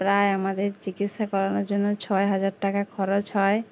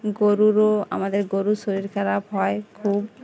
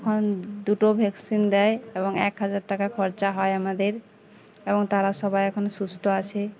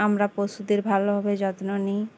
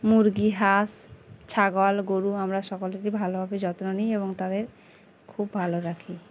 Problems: constant background noise, continuous background conversations